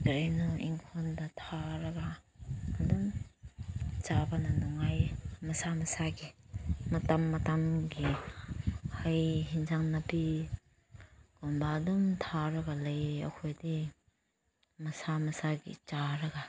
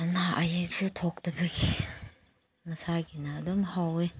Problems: none marked